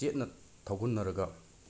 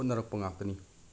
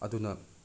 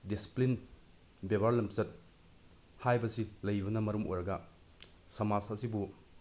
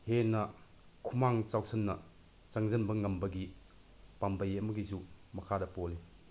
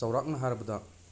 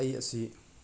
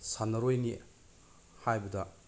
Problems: constant background noise